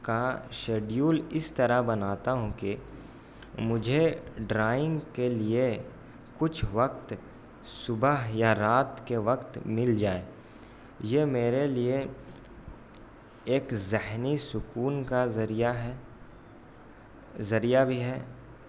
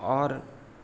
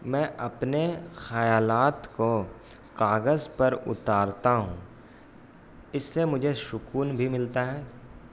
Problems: constant background noise